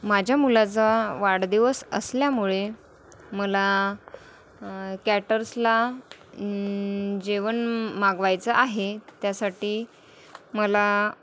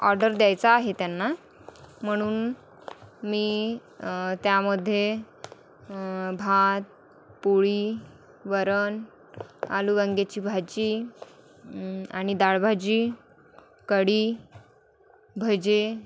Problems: none marked